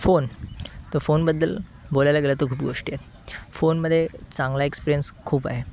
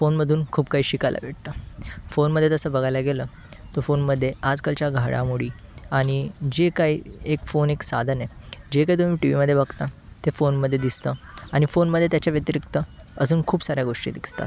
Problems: constant background noise, continuous background conversations